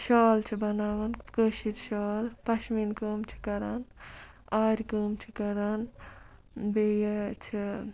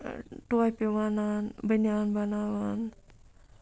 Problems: background sounds at intervals